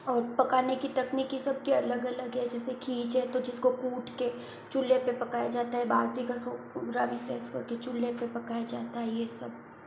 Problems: constant background noise, low volume